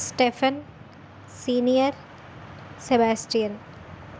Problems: constant background noise